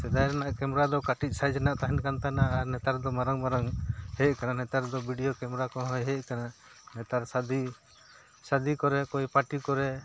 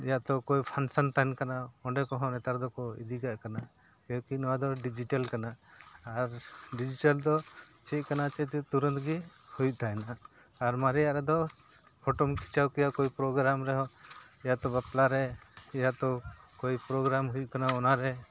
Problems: background sounds at intervals